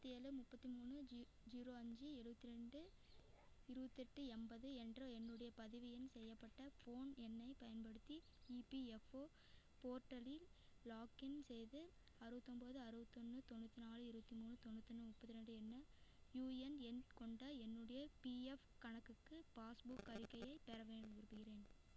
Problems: background sounds at intervals